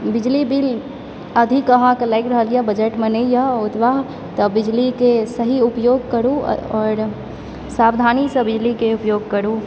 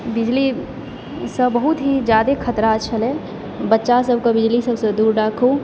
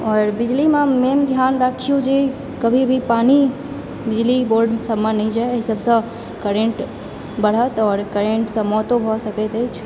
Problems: background sounds at intervals